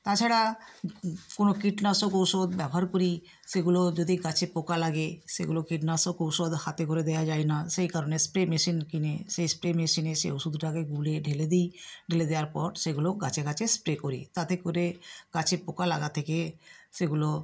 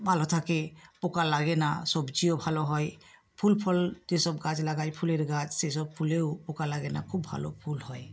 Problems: none marked